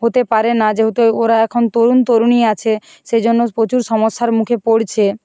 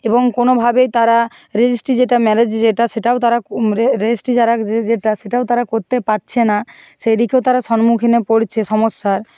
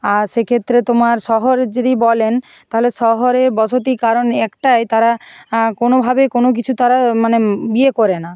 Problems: background sounds at intervals